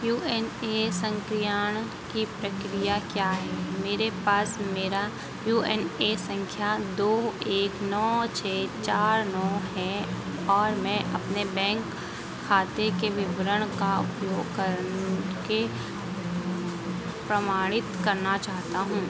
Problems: constant background noise